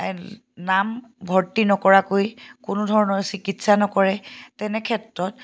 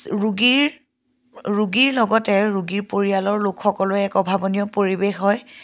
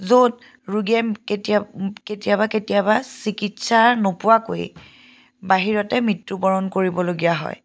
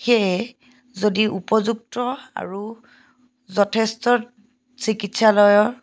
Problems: background sounds at intervals